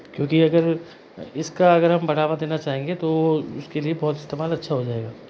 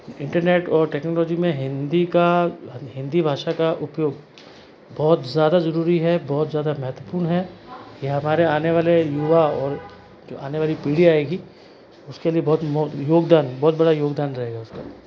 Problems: constant background noise